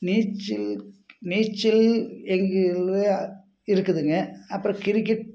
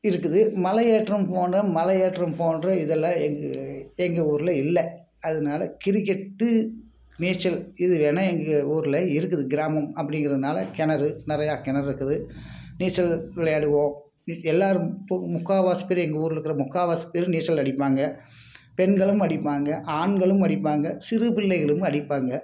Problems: background sounds at intervals